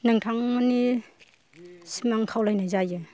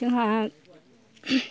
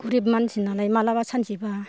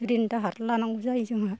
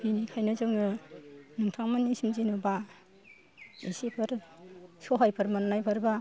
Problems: low volume